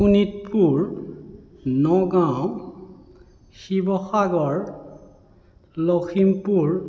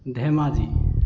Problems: none marked